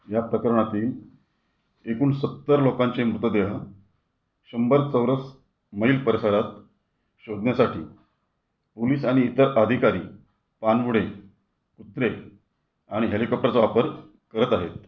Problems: background sounds at intervals